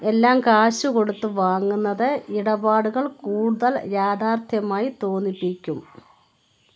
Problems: background sounds at intervals